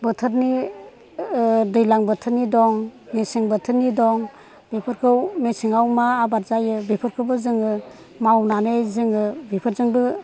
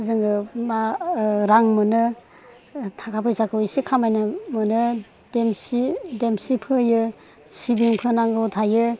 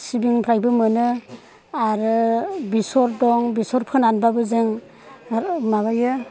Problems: none marked